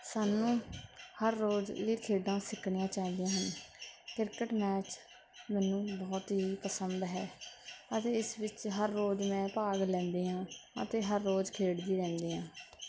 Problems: constant background noise